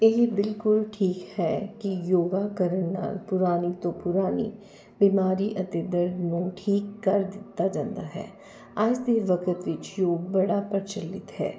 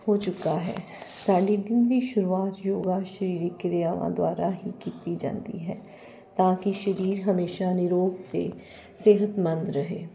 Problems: none marked